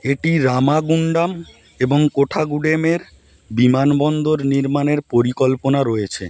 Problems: constant background noise